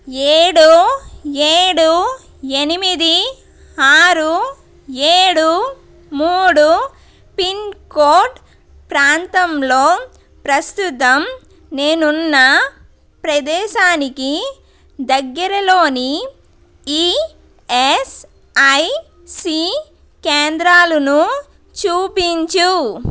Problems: constant background noise